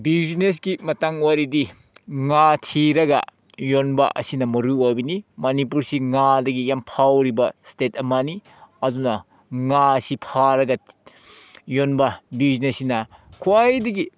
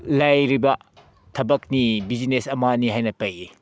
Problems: none marked